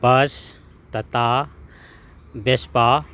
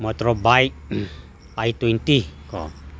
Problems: none marked